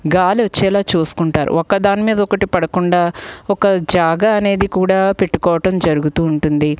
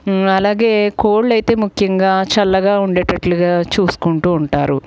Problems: background sounds at intervals